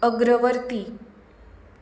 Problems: low volume